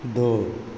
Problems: none marked